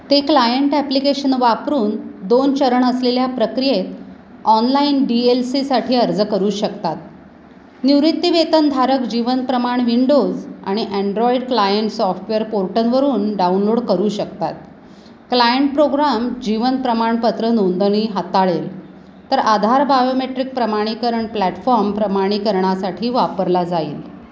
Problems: constant background noise